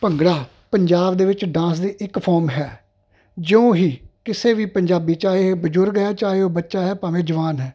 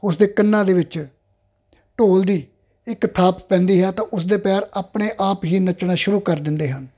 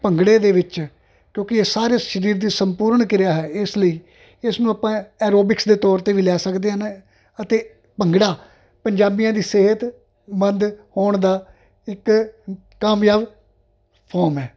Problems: constant background noise